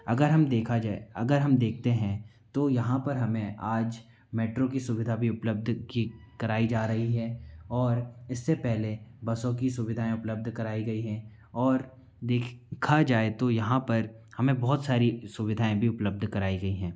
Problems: background sounds at intervals